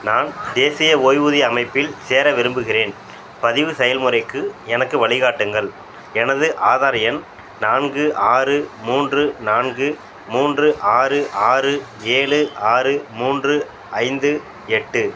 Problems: none marked